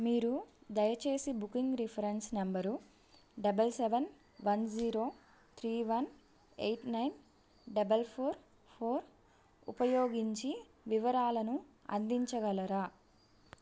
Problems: none marked